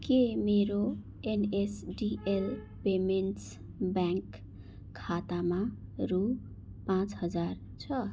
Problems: none marked